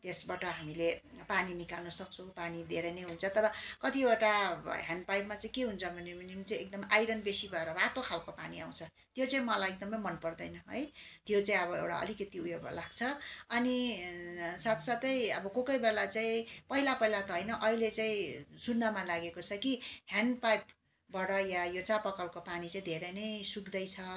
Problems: constant background noise, continuous background conversations